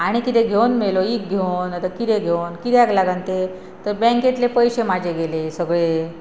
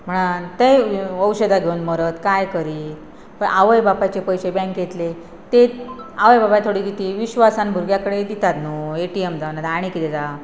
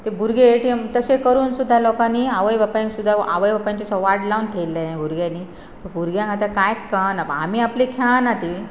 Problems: constant background noise